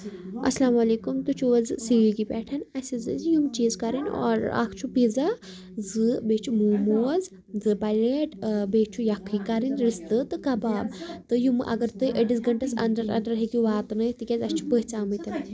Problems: continuous background conversations